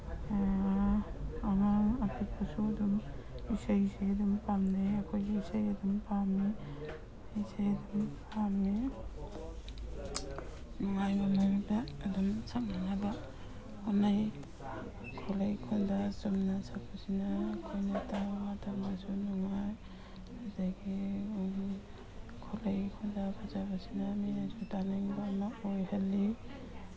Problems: background sounds at intervals